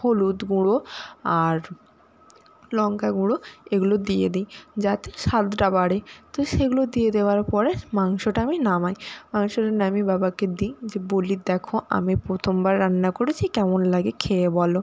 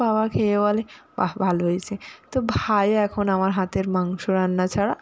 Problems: constant background noise